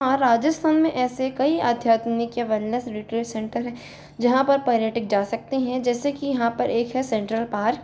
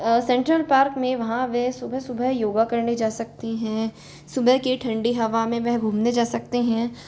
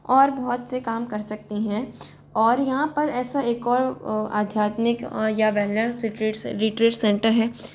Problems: constant background noise